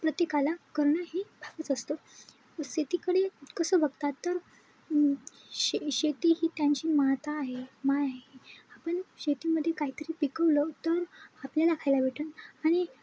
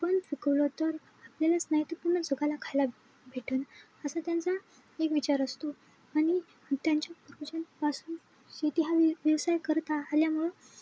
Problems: none marked